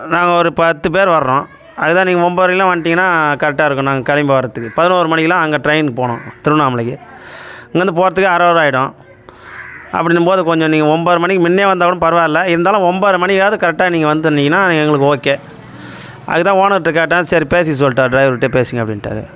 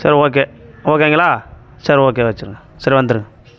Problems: constant background noise